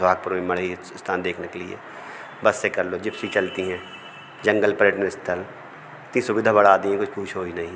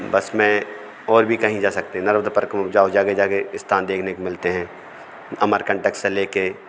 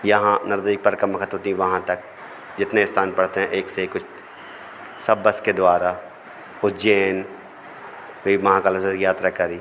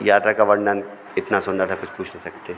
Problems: none marked